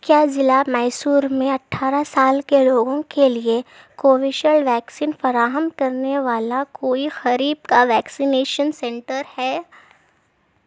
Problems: background sounds at intervals